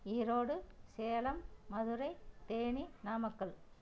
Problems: low volume